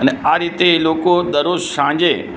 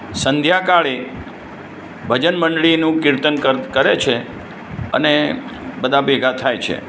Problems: background sounds at intervals